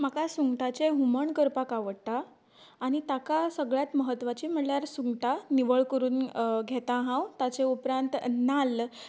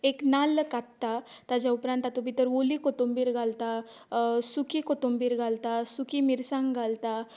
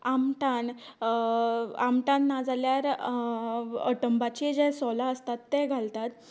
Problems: none marked